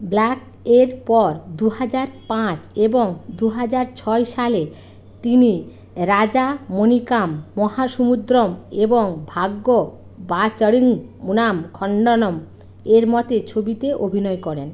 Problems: constant background noise